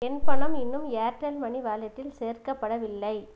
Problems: none marked